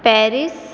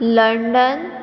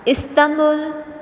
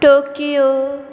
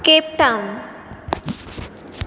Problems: background sounds at intervals